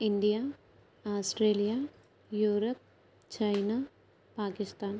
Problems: none marked